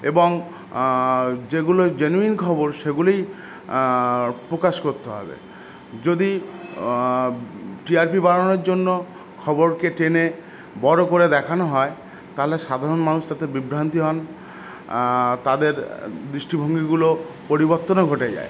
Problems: none marked